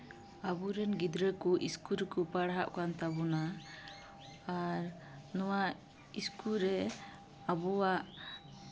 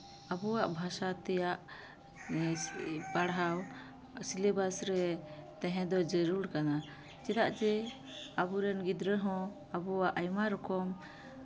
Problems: constant background noise